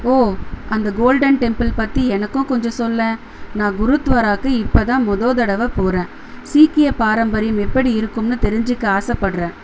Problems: constant background noise